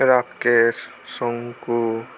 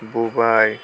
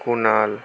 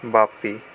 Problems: none marked